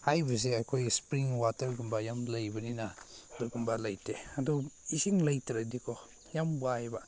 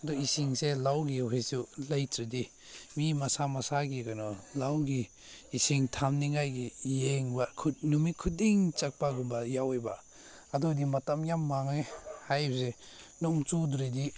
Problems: none marked